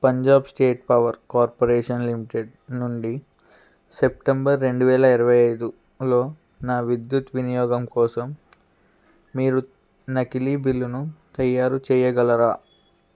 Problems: background sounds at intervals